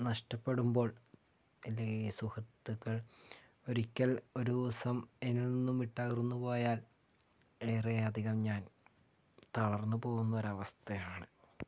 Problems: low volume